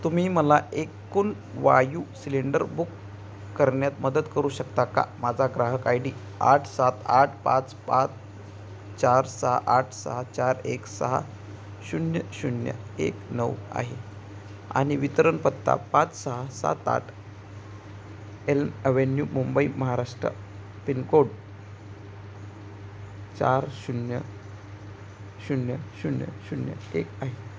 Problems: constant background noise